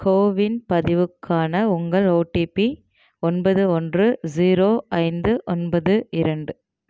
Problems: none marked